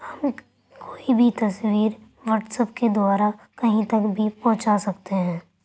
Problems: none marked